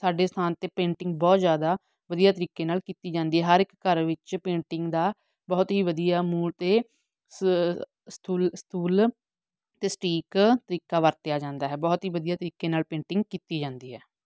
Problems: background sounds at intervals